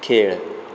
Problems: constant background noise